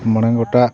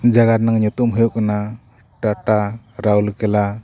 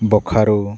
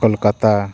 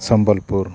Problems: continuous background conversations